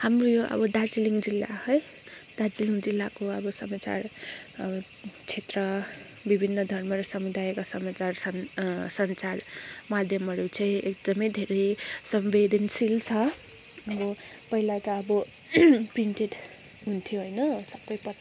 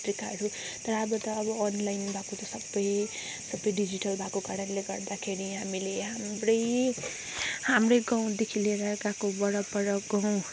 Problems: background sounds at intervals